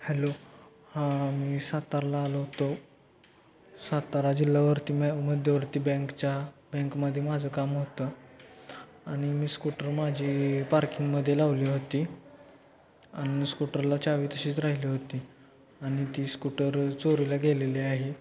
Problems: constant background noise, low volume